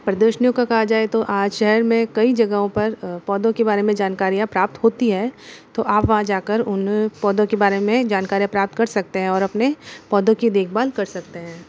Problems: constant background noise